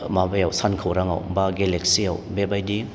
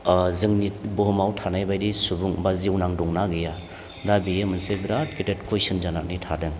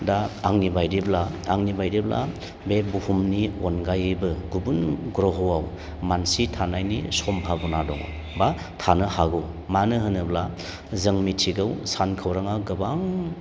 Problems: none marked